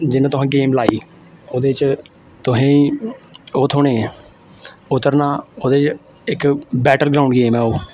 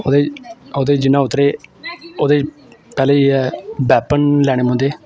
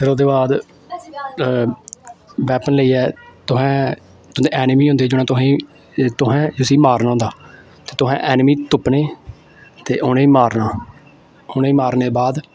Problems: constant background noise